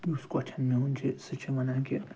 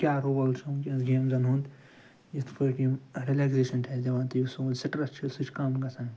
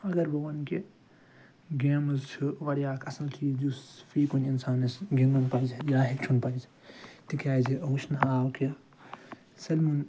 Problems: background sounds at intervals